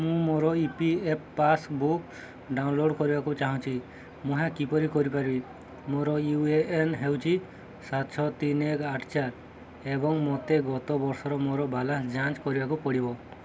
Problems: continuous background conversations